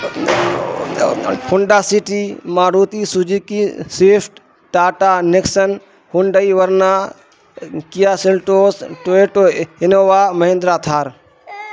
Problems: constant background noise